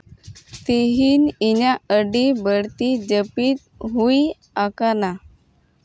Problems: none marked